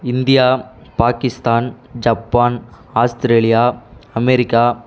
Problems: constant background noise